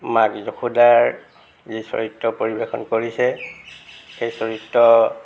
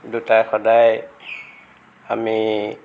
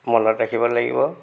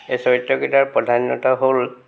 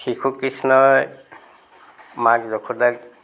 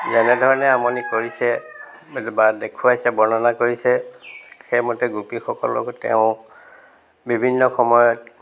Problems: constant background noise